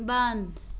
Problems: constant background noise